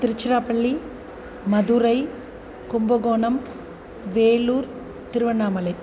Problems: none marked